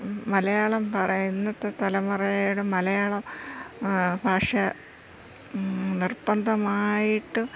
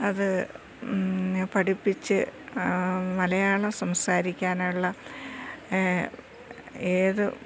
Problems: constant background noise, low volume